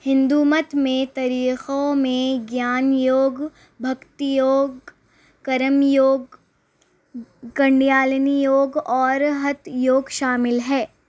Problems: constant background noise